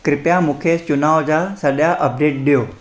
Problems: echo